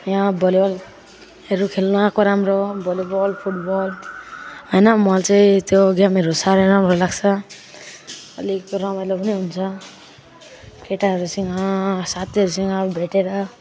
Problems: none marked